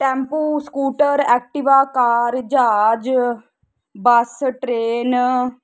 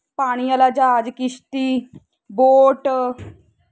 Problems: constant background noise